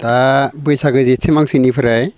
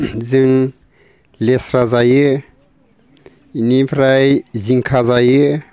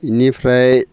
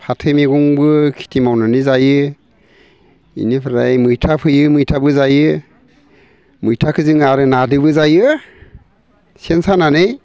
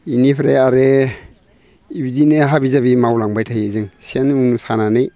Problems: constant background noise